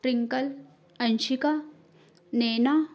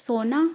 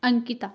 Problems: none marked